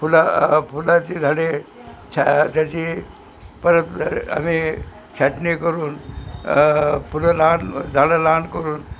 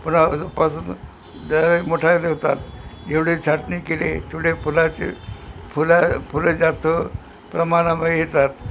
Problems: constant background noise